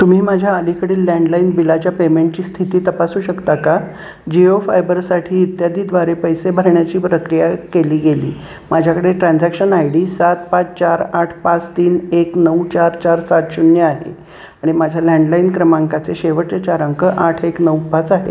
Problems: constant background noise, background conversations at intervals